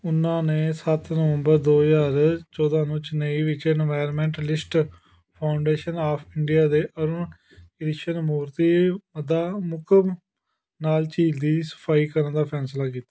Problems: none marked